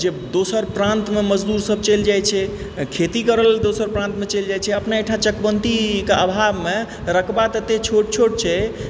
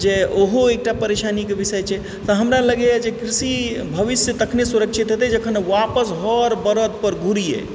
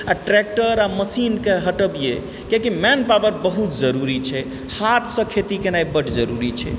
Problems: constant background noise